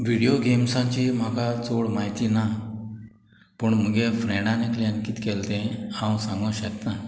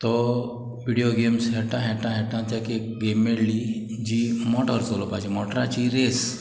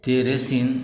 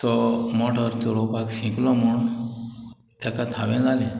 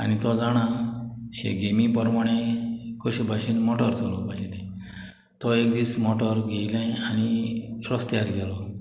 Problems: background sounds at intervals, background conversations at intervals